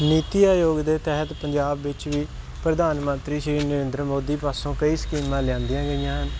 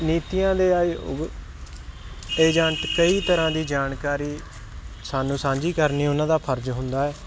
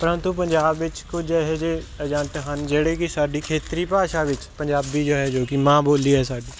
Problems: constant background noise